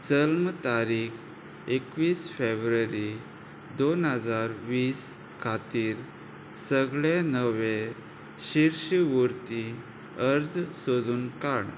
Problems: none marked